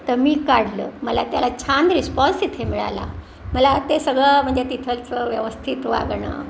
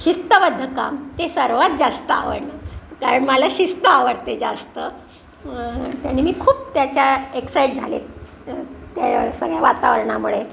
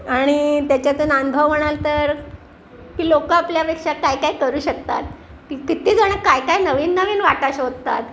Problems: none marked